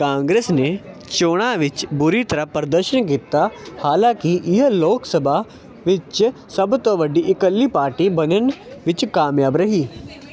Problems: none marked